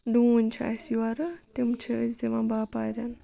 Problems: background sounds at intervals